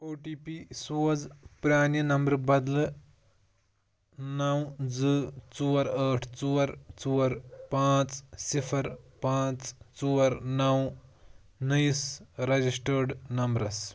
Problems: background sounds at intervals